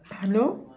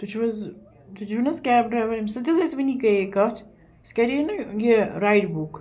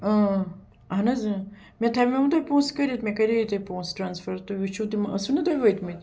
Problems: background sounds at intervals